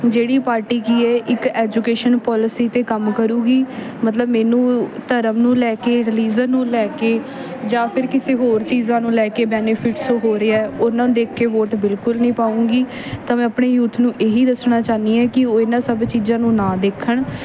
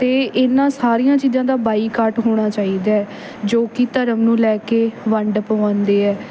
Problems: background sounds at intervals